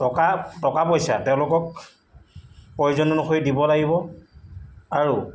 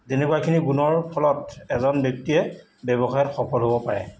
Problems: background sounds at intervals